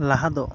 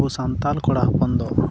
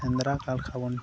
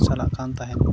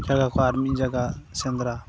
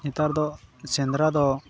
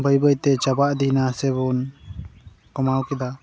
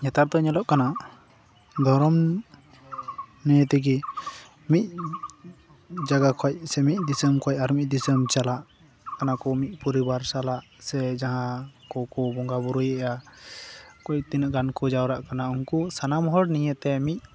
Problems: constant background noise, background conversations at intervals